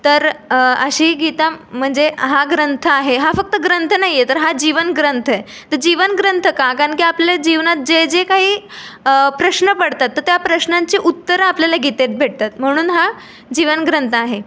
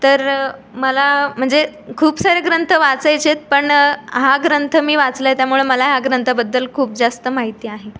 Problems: background sounds at intervals, background conversations at intervals